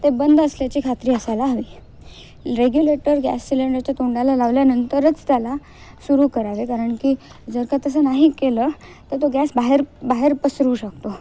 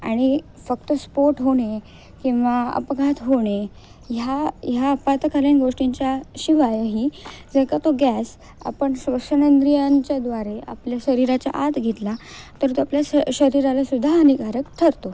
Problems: none marked